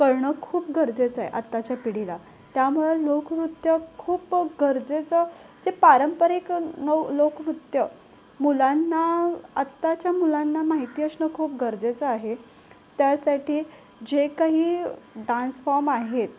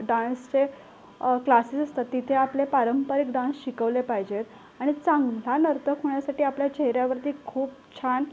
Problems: constant background noise, background conversations at intervals